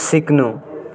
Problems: continuous background conversations